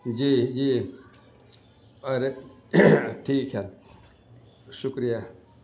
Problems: constant background noise